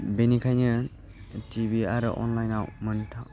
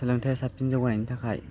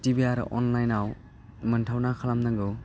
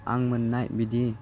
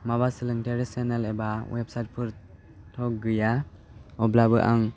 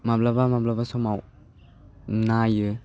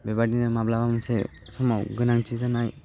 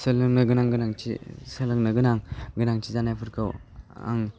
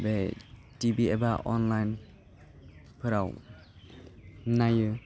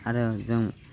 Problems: constant background noise